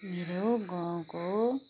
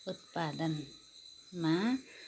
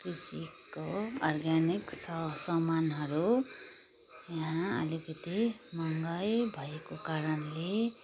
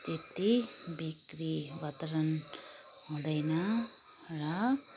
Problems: background sounds at intervals, background conversations at intervals